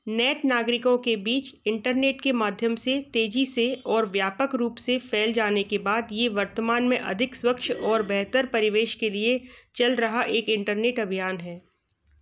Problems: none marked